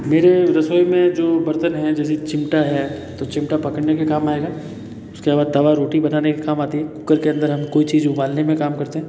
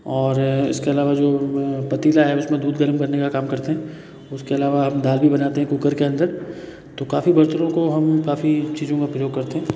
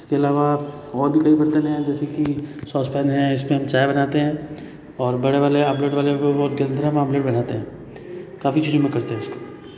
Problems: constant background noise